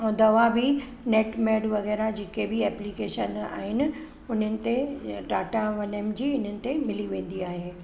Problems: background sounds at intervals